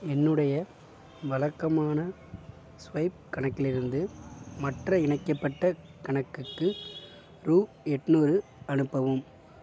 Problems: background sounds at intervals